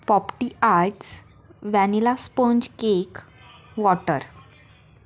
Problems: none marked